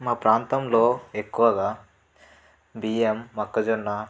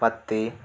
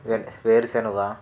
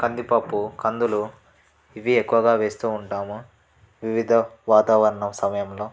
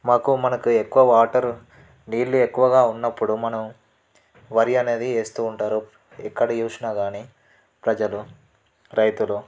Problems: background sounds at intervals